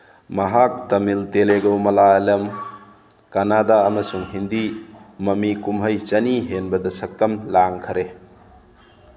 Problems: background sounds at intervals